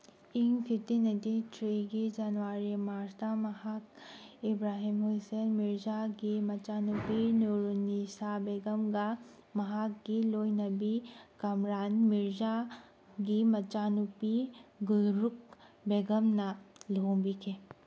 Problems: background sounds at intervals